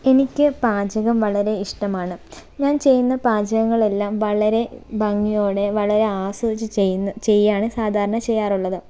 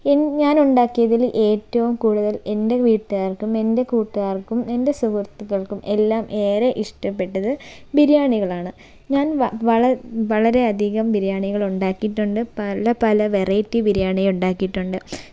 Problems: none marked